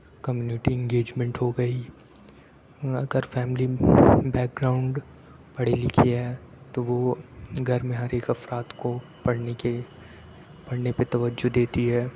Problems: background sounds at intervals, low volume